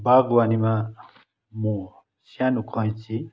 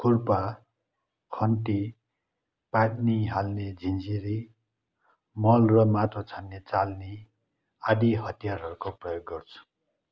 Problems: none marked